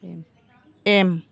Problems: background conversations at intervals